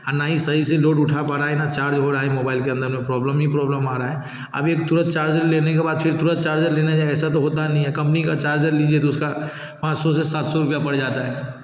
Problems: constant background noise, background conversations at intervals